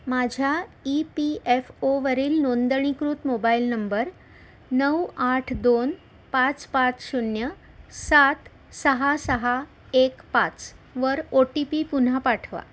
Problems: none marked